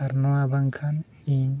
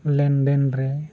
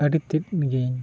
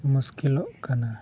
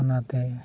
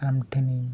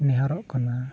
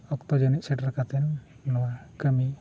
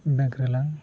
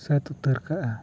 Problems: none marked